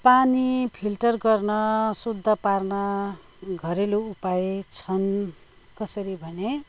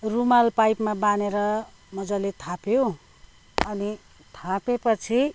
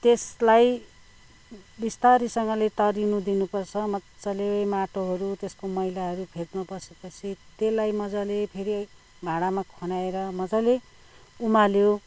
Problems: none marked